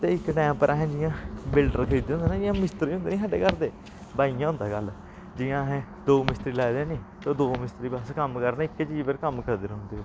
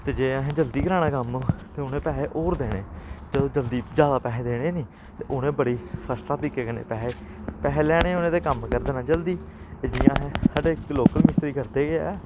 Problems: constant background noise